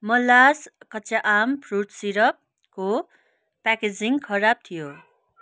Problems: none marked